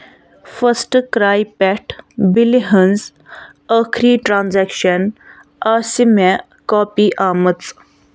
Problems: constant background noise